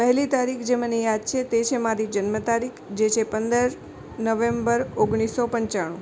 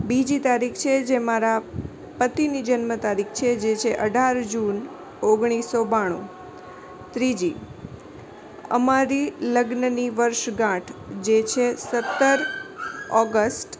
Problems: constant background noise